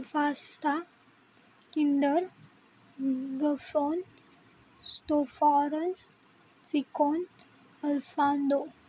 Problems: none marked